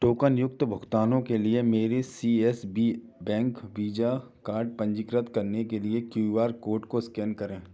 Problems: background sounds at intervals